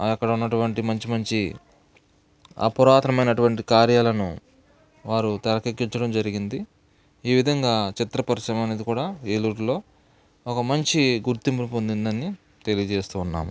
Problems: none marked